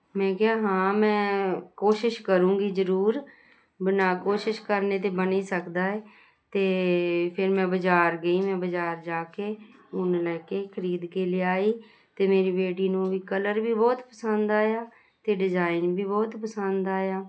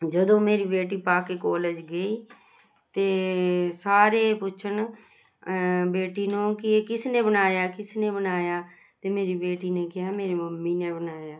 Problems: constant background noise